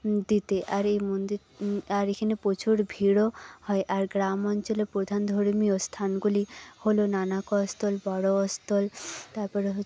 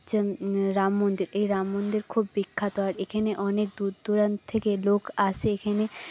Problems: background sounds at intervals, background conversations at intervals